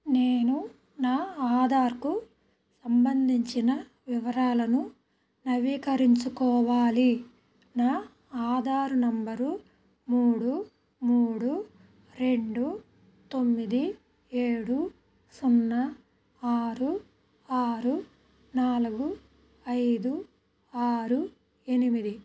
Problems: background sounds at intervals